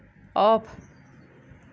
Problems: none marked